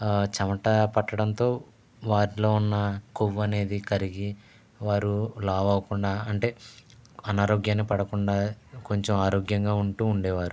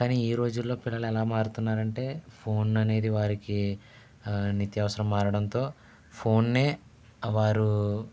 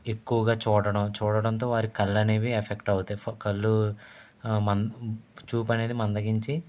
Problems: none marked